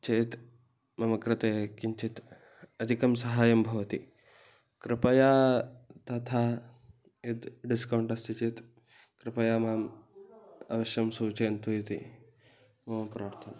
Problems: background conversations at intervals